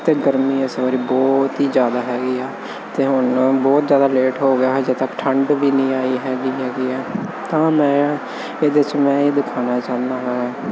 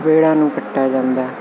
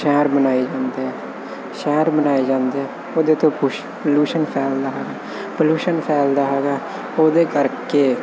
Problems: constant background noise